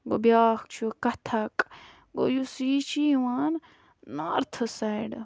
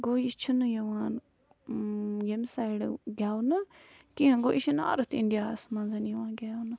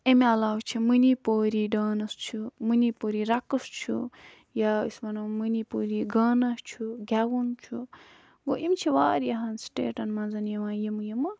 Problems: background sounds at intervals